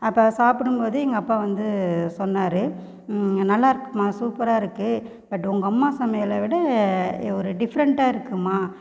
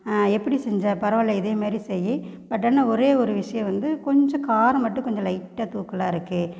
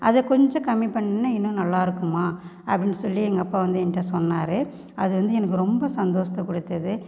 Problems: constant background noise